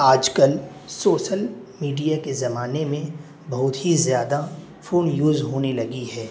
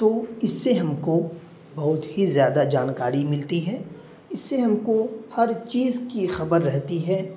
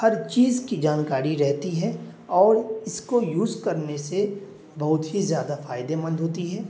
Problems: constant background noise